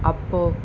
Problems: constant background noise